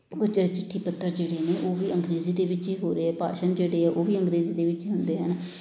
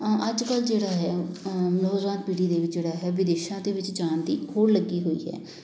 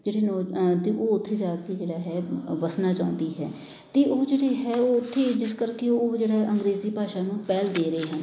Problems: none marked